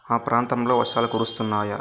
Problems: constant background noise